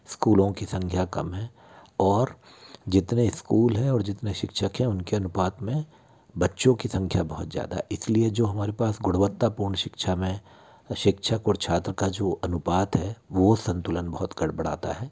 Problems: none marked